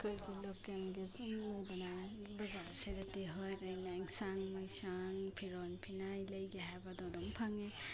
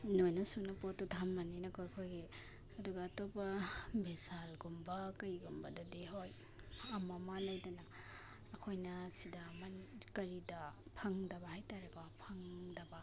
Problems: none marked